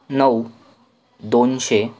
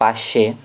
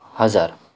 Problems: none marked